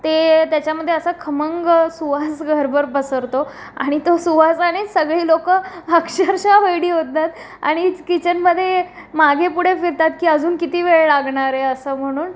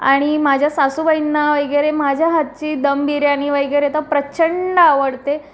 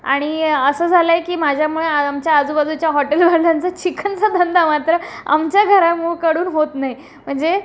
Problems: constant background noise, continuous background conversations